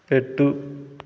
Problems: none marked